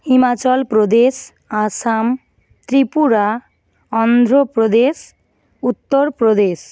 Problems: background sounds at intervals